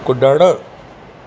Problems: constant background noise